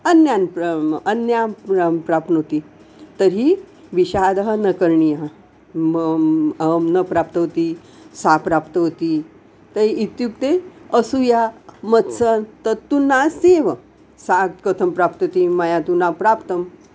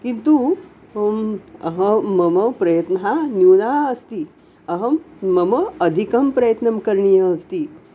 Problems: constant background noise